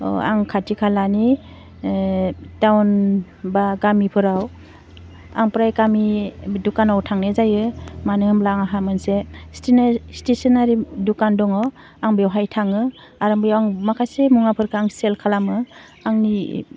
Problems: constant background noise